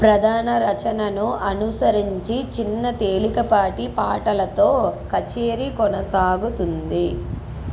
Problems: none marked